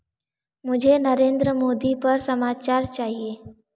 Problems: echo